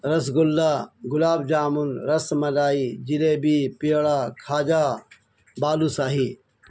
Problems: none marked